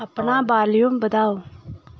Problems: none marked